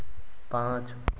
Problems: constant background noise